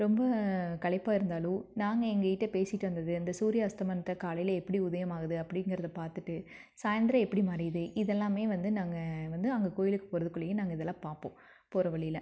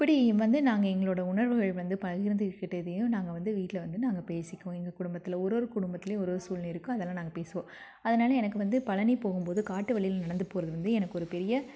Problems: none marked